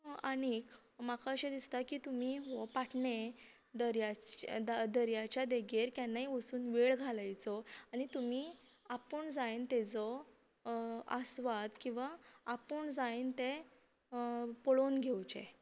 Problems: none marked